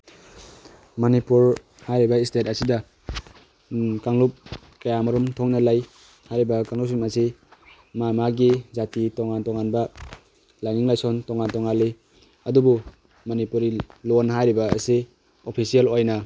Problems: none marked